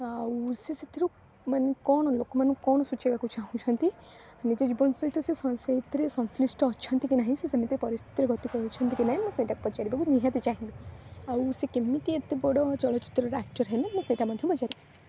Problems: constant background noise